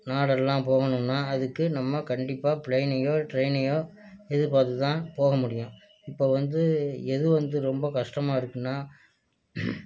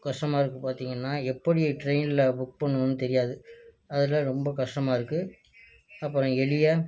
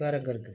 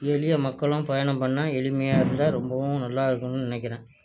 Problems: low volume